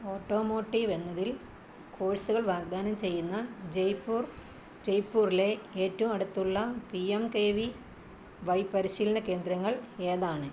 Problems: none marked